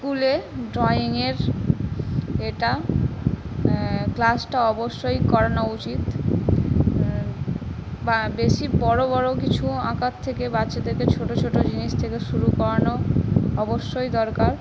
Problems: constant background noise